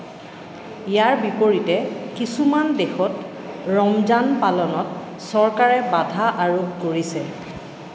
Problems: background sounds at intervals